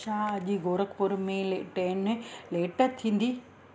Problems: constant background noise